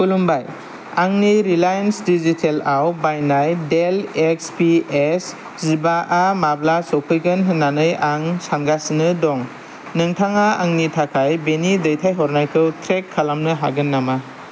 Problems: none marked